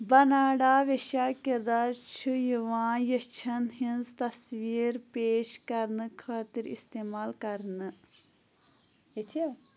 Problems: none marked